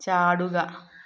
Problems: none marked